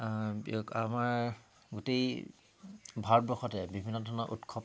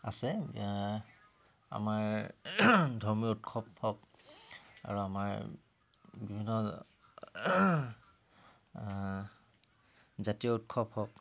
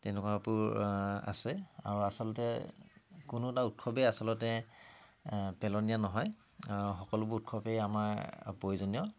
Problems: constant background noise